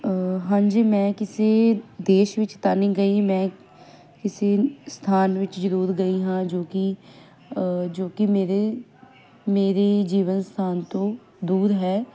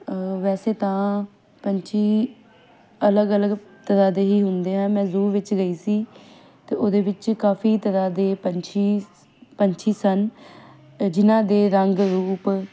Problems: background sounds at intervals